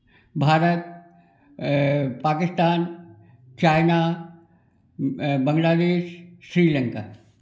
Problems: none marked